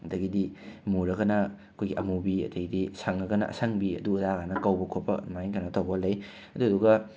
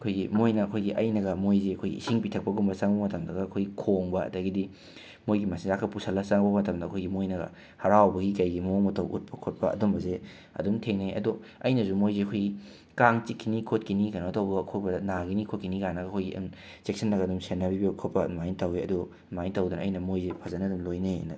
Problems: background sounds at intervals